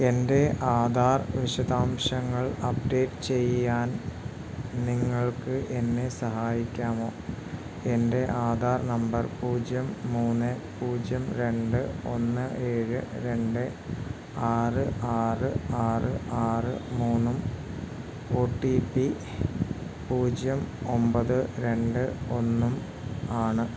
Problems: none marked